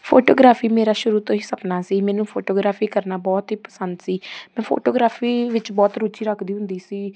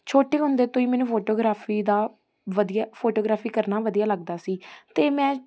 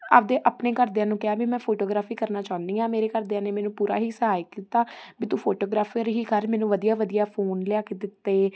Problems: constant background noise